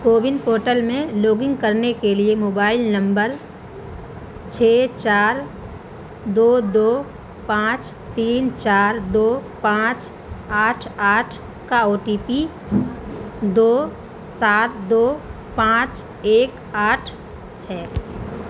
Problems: constant background noise